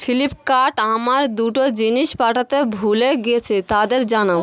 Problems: constant background noise, background conversations at intervals